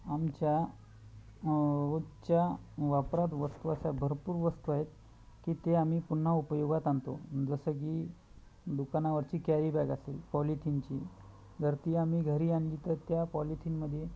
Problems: none marked